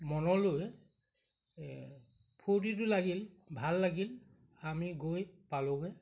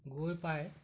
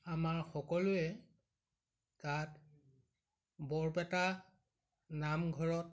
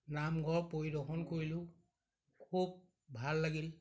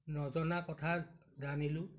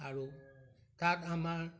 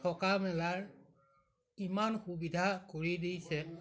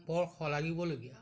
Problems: none marked